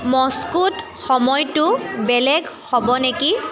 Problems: background conversations at intervals